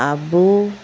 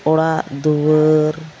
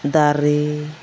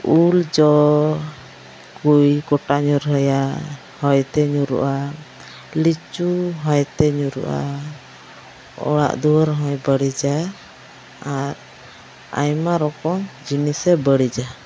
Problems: background sounds at intervals